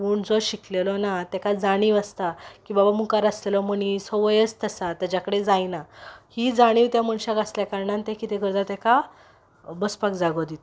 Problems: background sounds at intervals